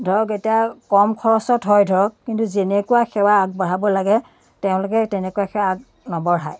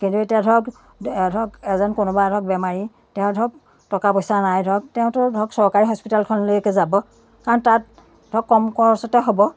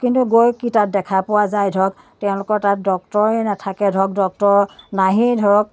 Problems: none marked